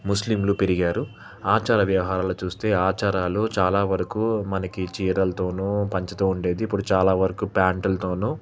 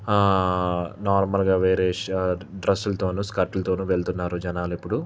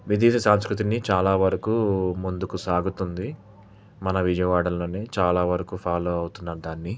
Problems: constant background noise